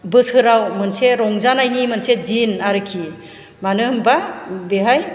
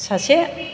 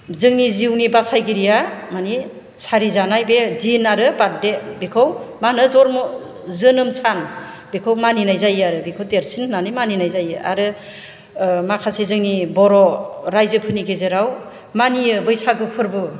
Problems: none marked